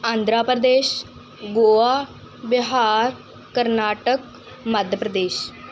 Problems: background sounds at intervals